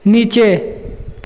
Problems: constant background noise, echo